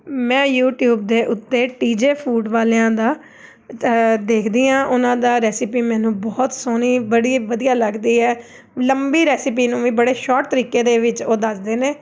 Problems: background sounds at intervals